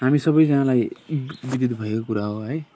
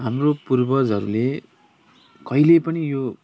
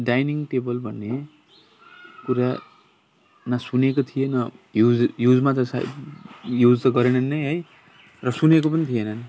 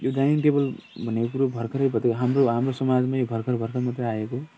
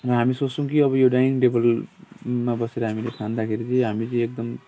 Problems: constant background noise, continuous background conversations